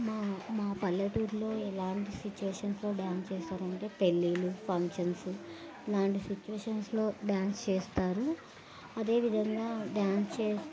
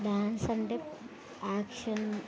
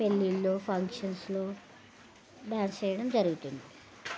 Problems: constant background noise